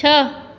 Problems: echo